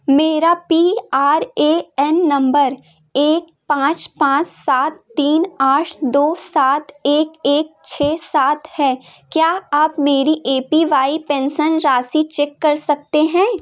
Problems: none marked